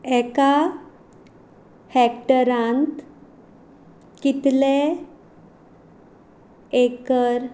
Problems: none marked